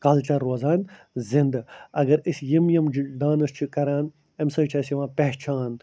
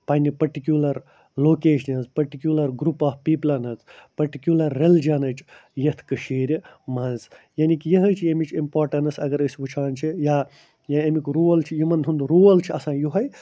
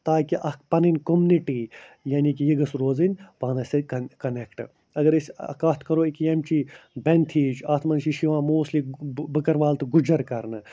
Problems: none marked